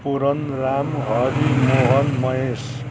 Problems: constant background noise